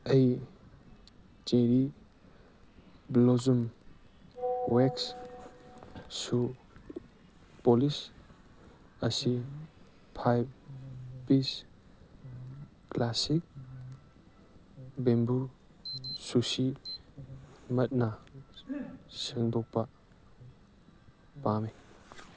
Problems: background sounds at intervals, background conversations at intervals